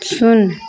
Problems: none marked